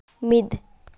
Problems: none marked